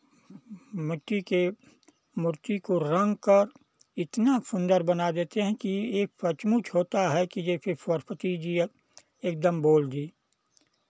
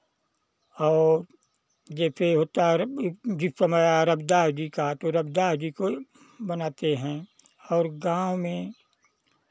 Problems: none marked